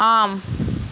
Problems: constant background noise